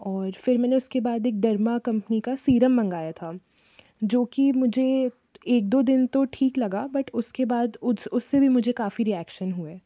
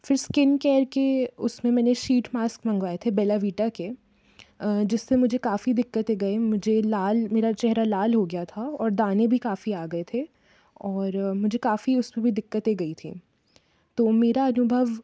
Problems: background sounds at intervals